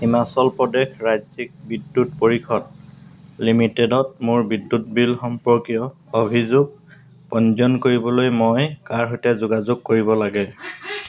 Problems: background sounds at intervals